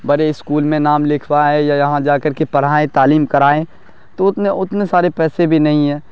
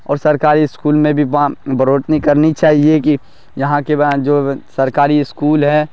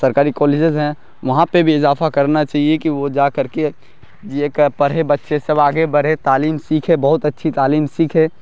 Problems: none marked